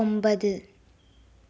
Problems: low volume